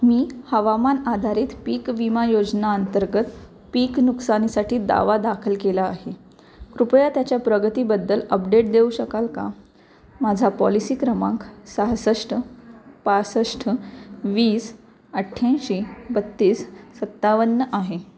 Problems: constant background noise